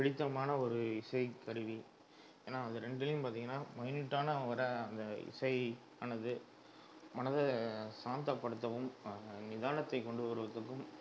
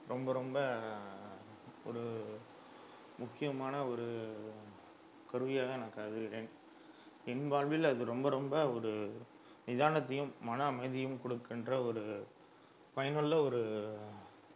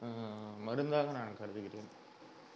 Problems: background sounds at intervals